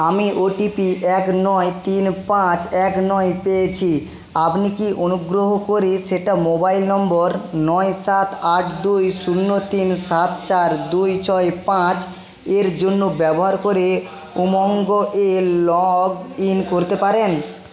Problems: constant background noise